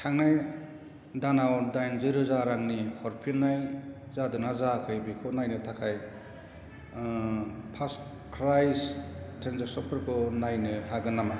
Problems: none marked